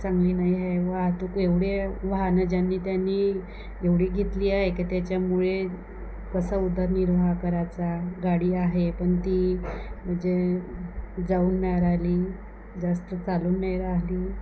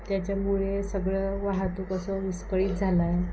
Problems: none marked